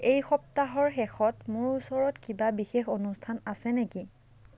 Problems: none marked